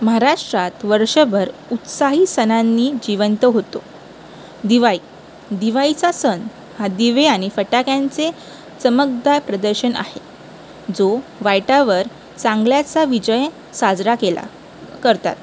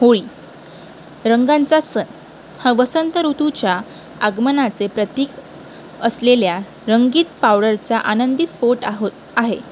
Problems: constant background noise